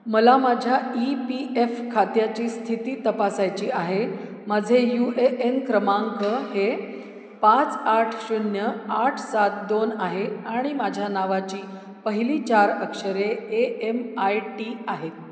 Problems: none marked